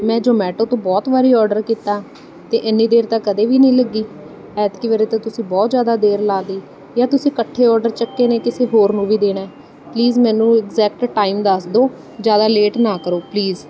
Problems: none marked